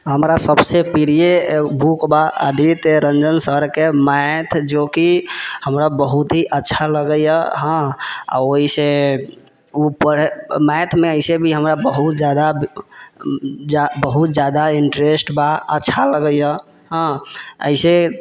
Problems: none marked